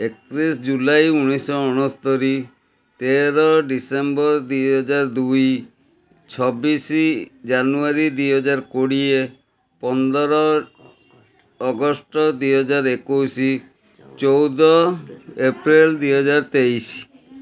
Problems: constant background noise